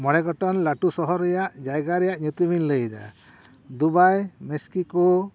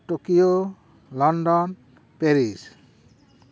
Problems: none marked